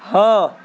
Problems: constant background noise, background conversations at intervals